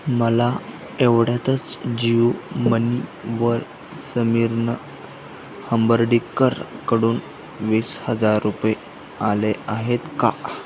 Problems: constant background noise